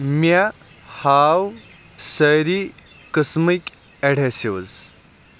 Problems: none marked